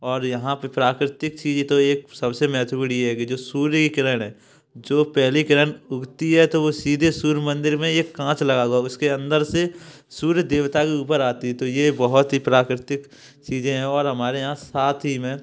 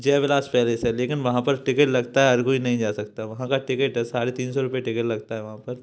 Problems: background sounds at intervals